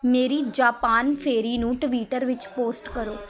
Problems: constant background noise